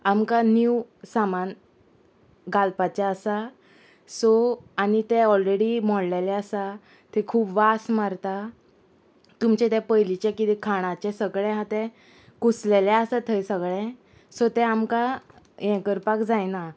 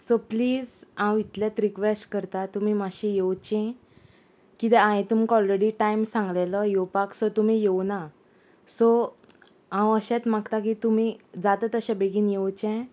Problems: constant background noise